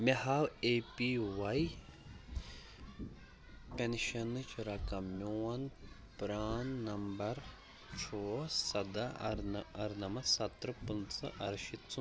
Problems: background sounds at intervals, background conversations at intervals